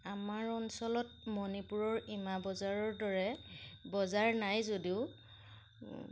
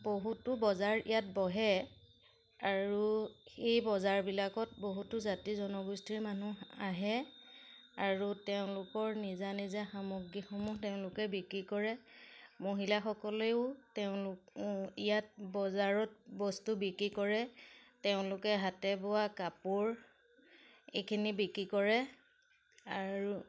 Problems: none marked